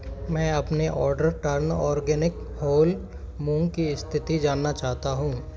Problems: background sounds at intervals